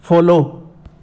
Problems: none marked